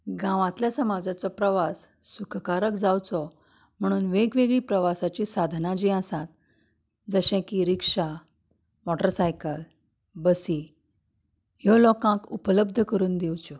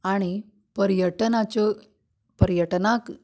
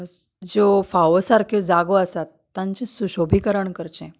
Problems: none marked